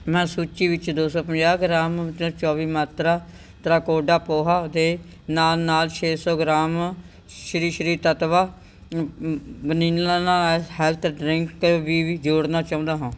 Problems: none marked